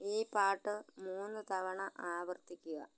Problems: low volume